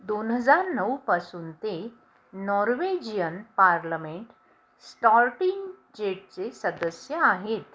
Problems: background sounds at intervals